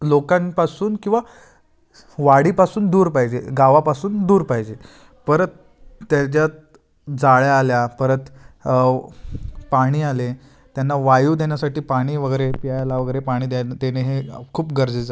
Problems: constant background noise, background conversations at intervals